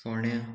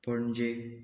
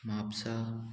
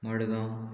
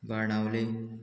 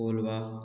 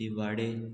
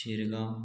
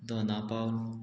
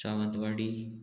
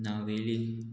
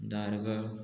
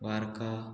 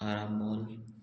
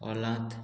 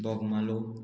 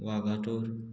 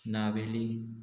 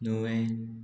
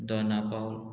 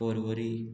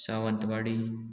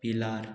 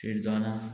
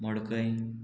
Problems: constant background noise, continuous background conversations